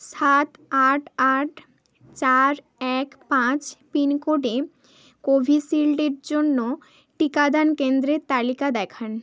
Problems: none marked